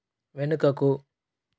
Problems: none marked